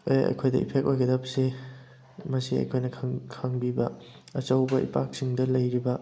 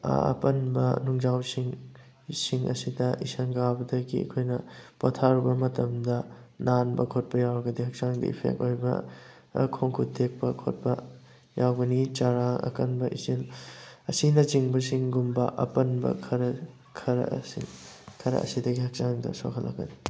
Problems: background sounds at intervals